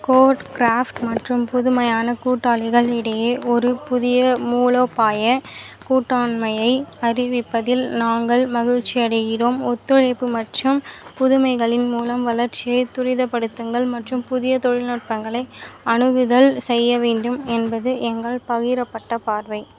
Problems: constant background noise